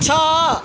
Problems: constant background noise